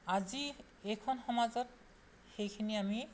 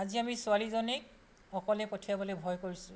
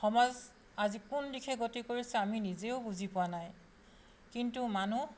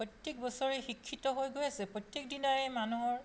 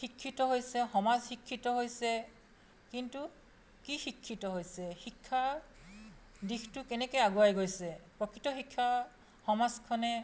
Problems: none marked